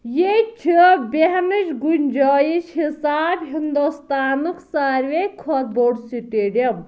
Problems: none marked